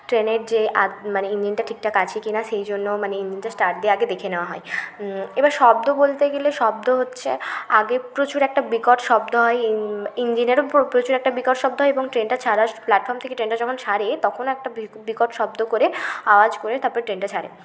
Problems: constant background noise